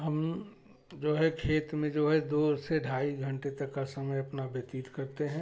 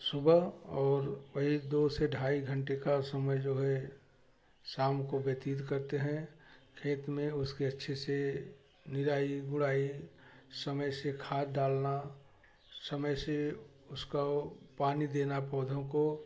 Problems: background sounds at intervals, background conversations at intervals